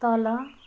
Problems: background conversations at intervals